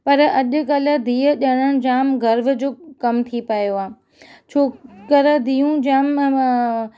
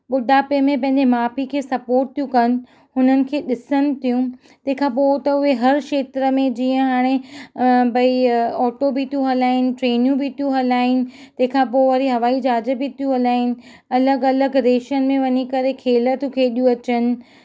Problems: none marked